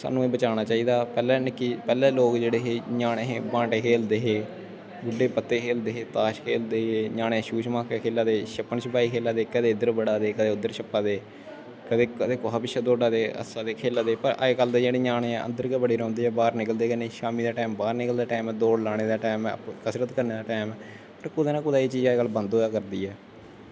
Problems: constant background noise